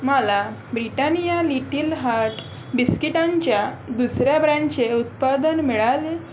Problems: none marked